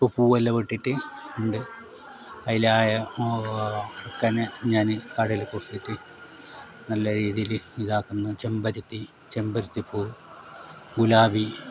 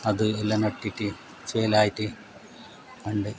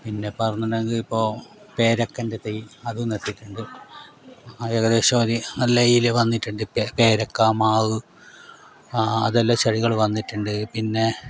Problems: background sounds at intervals